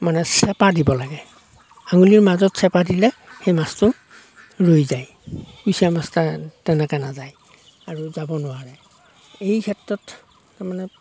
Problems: none marked